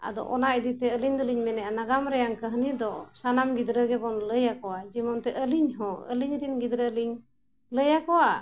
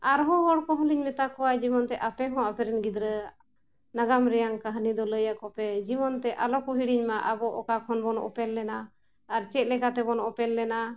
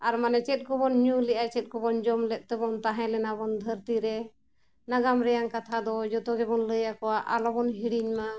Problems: none marked